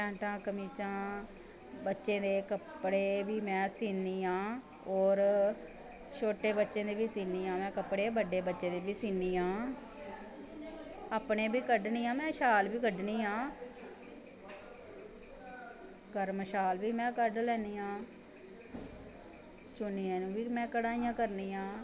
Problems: constant background noise